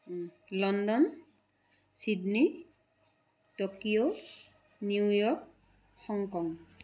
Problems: none marked